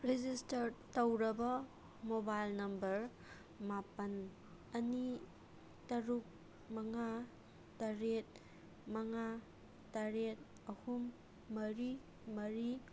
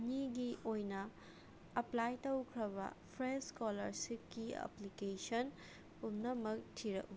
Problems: none marked